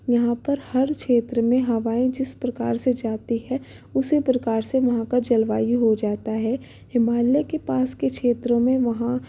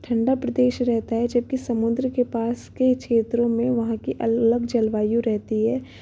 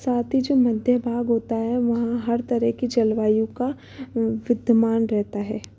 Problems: none marked